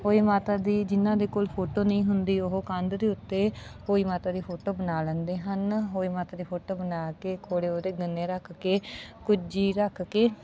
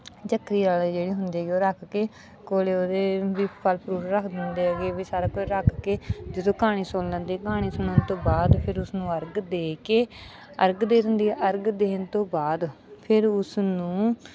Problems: none marked